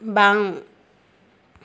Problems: constant background noise